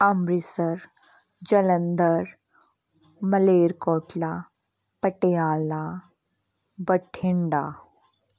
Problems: none marked